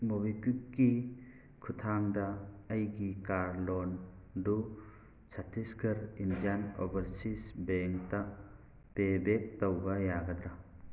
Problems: background sounds at intervals